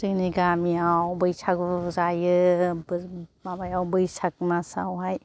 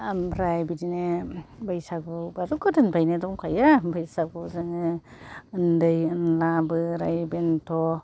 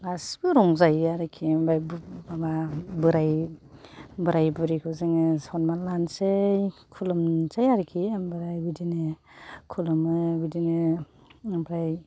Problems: none marked